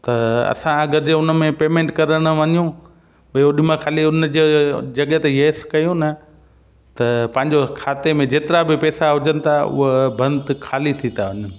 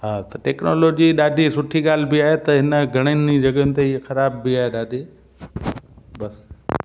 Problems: constant background noise, echo